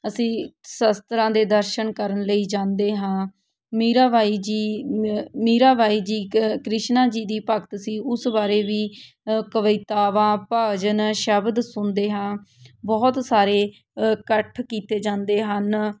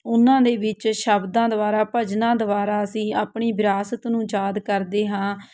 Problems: none marked